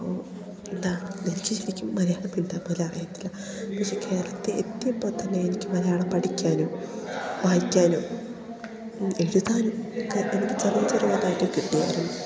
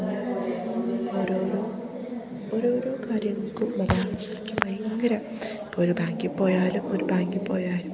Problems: none marked